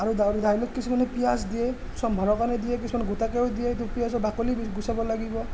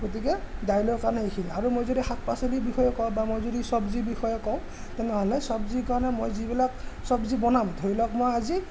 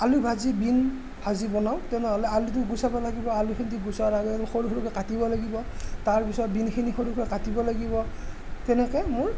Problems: constant background noise, background conversations at intervals